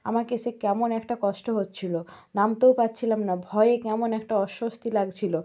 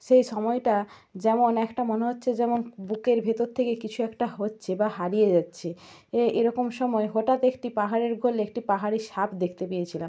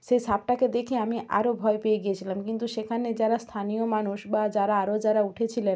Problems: none marked